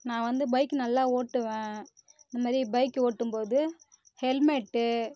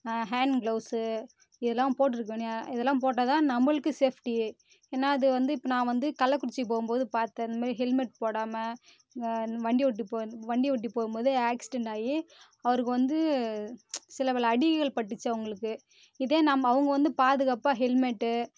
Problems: none marked